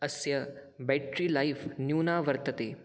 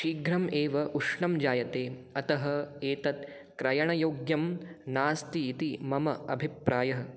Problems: none marked